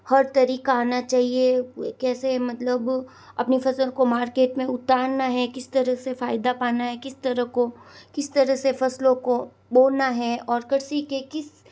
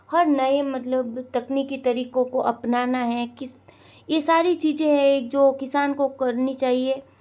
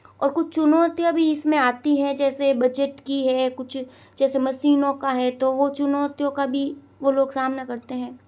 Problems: none marked